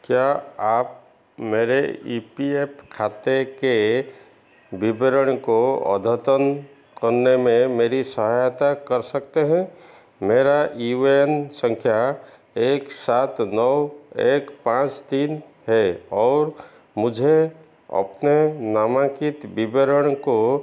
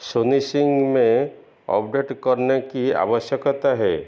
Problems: constant background noise, echo